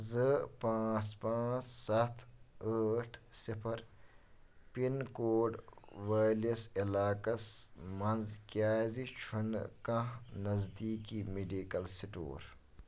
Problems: background sounds at intervals